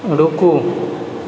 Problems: constant background noise